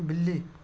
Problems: constant background noise, low volume